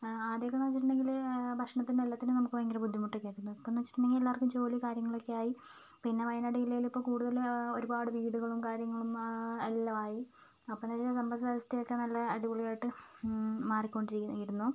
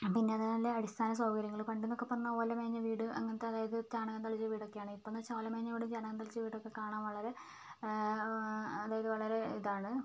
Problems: low volume